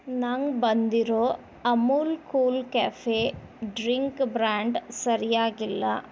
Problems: background conversations at intervals